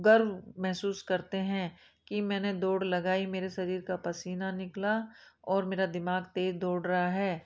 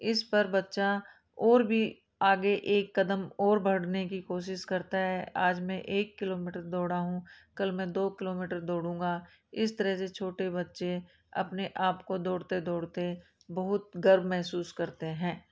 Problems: background sounds at intervals